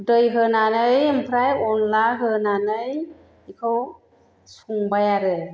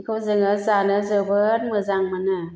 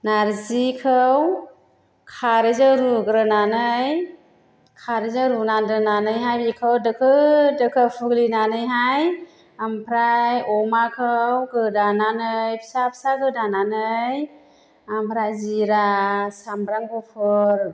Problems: none marked